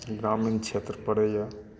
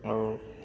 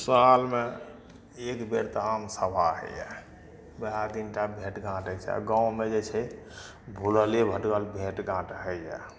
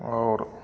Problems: background conversations at intervals